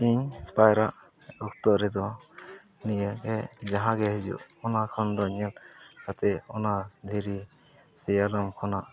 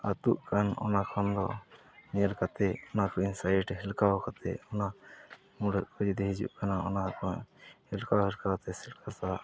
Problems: low volume